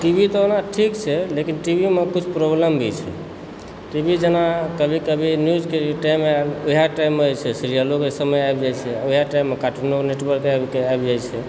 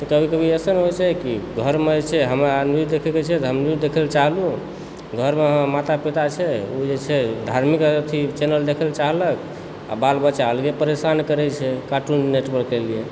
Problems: constant background noise